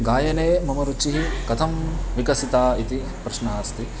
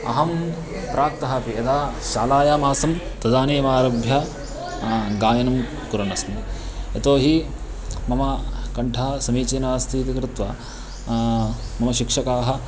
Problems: constant background noise